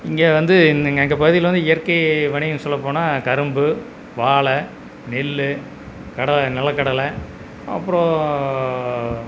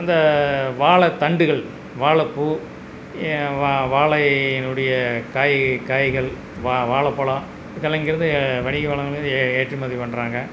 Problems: background sounds at intervals